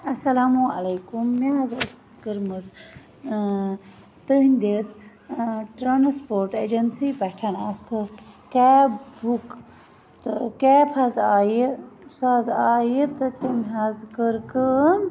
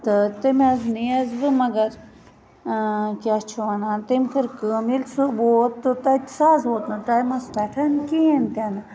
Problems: constant background noise